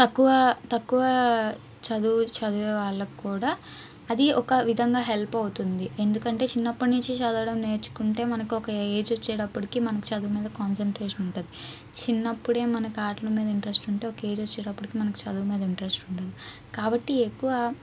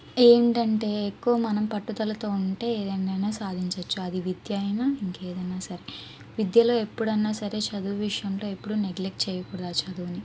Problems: background sounds at intervals